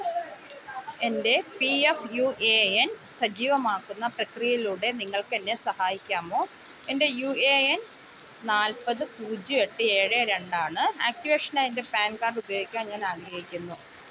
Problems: constant background noise